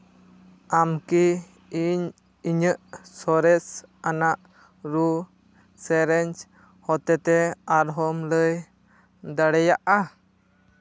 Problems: background sounds at intervals